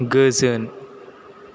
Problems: constant background noise